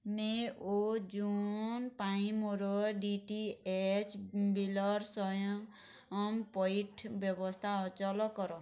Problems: none marked